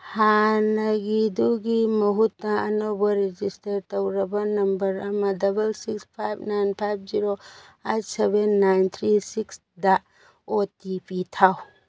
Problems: background sounds at intervals